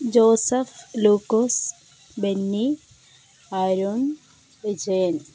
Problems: constant background noise